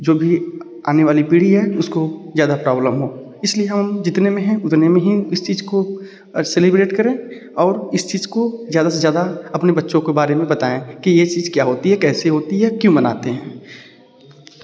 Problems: background sounds at intervals